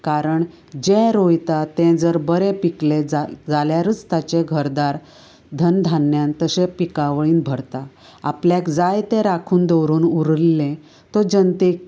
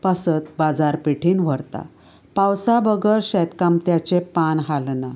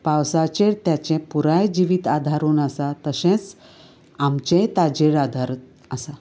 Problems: none marked